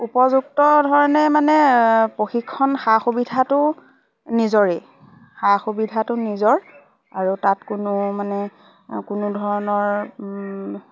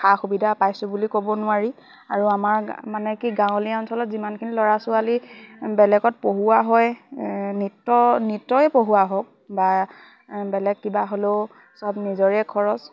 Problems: constant background noise, background conversations at intervals